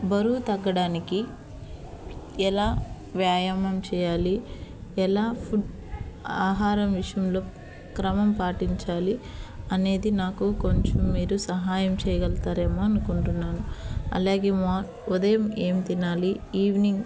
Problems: background sounds at intervals